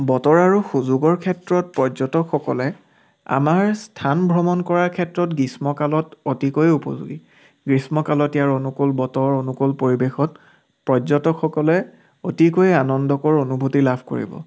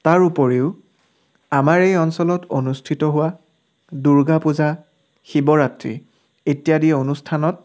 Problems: background sounds at intervals